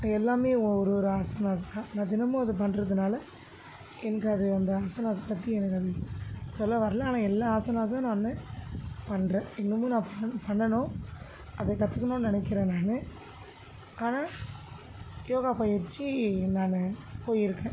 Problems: constant background noise